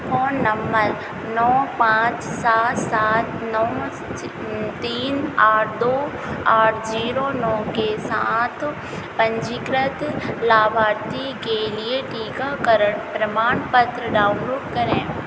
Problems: constant background noise